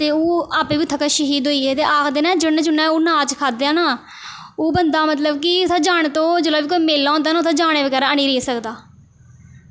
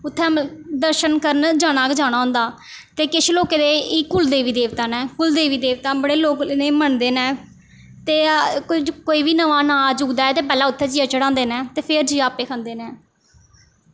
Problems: none marked